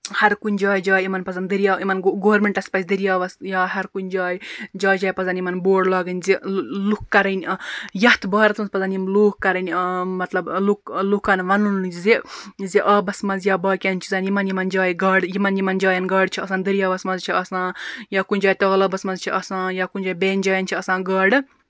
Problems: constant background noise